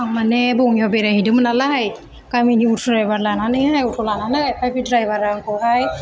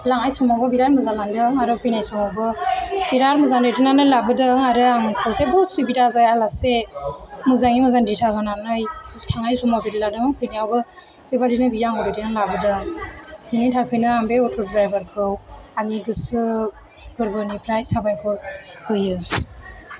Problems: background sounds at intervals, continuous background conversations